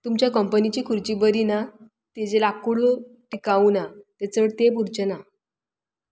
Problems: background sounds at intervals